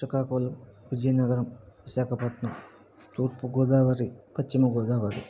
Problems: background sounds at intervals, low volume